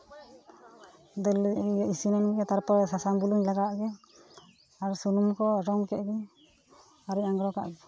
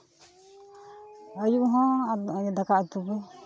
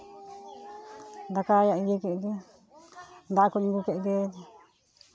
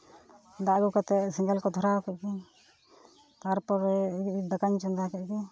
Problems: continuous background conversations